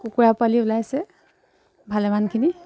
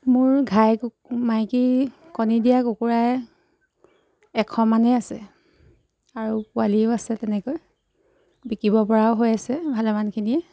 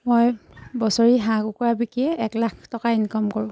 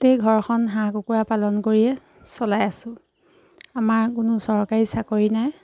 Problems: background sounds at intervals